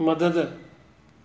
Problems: constant background noise